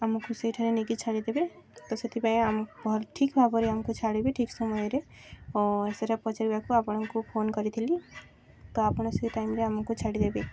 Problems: constant background noise, background conversations at intervals